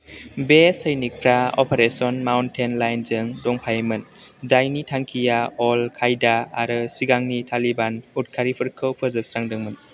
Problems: constant background noise